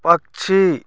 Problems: constant background noise